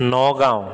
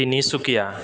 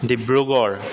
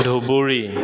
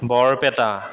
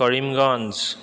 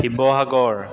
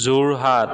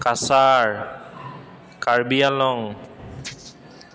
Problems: constant background noise, echo